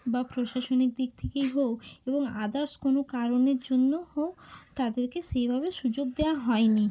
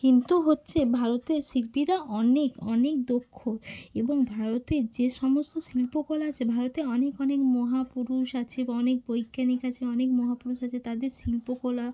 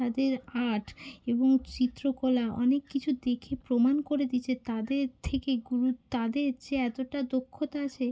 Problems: constant background noise